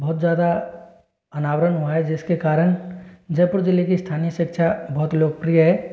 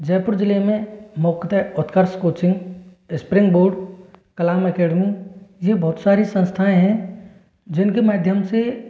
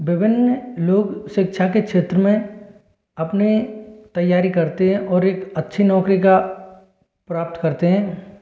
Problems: constant background noise, echo